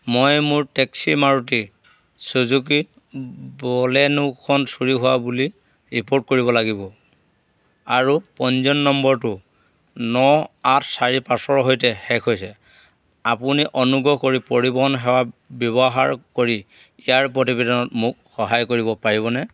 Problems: none marked